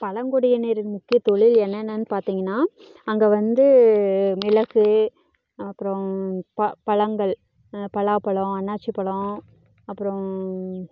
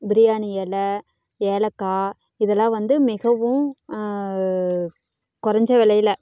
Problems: background conversations at intervals